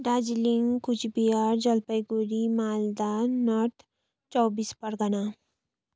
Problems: none marked